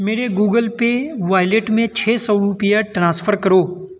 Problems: constant background noise